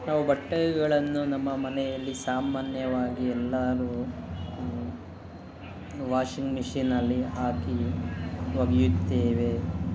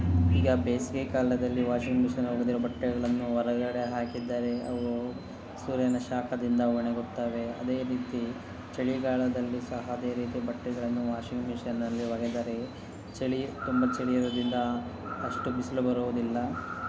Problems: constant background noise, background conversations at intervals